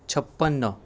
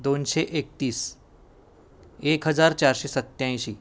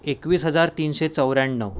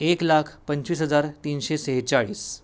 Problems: none marked